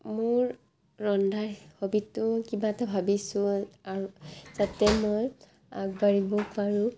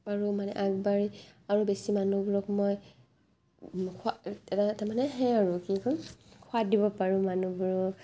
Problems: constant background noise